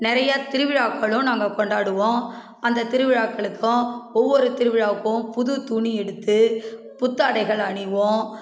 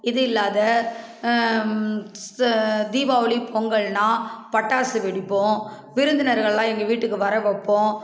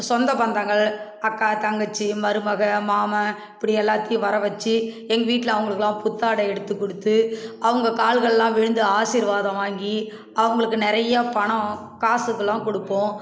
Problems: none marked